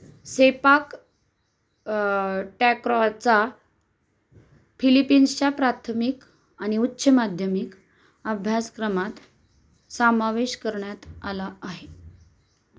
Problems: constant background noise